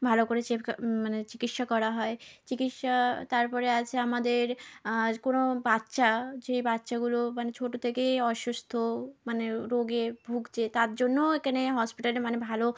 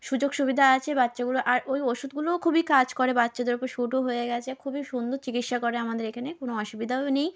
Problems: background sounds at intervals